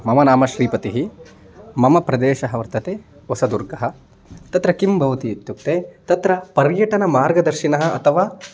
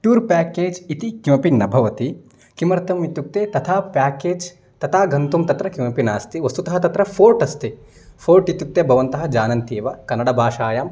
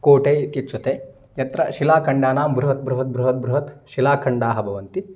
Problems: constant background noise